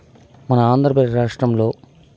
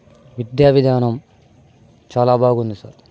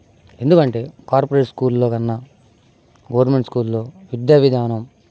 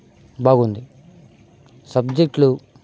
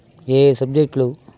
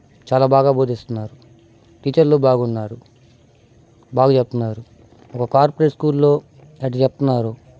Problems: none marked